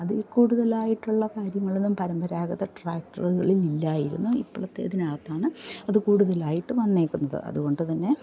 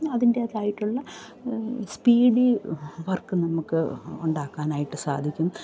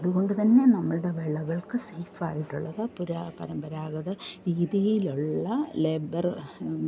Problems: none marked